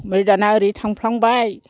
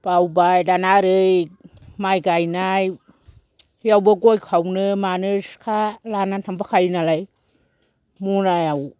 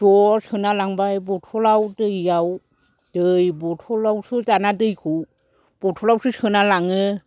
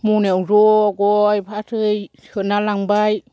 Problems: none marked